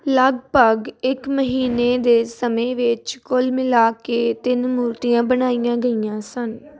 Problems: constant background noise